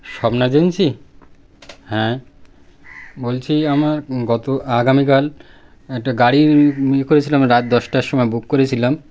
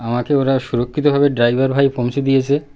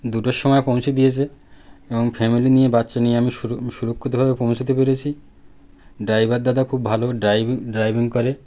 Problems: constant background noise